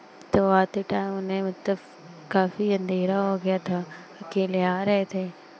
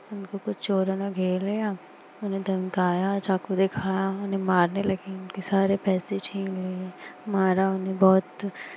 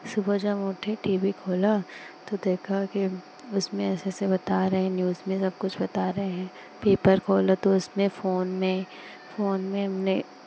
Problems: constant background noise